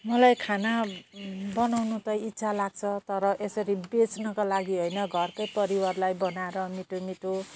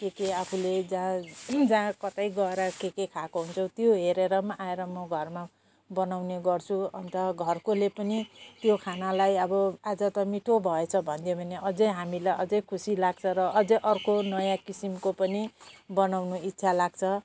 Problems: none marked